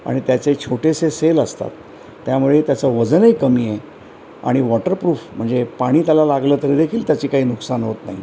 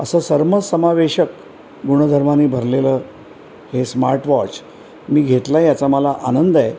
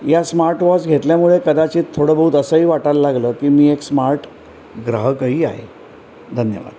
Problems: constant background noise